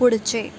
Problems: constant background noise, background conversations at intervals